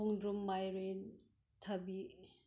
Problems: none marked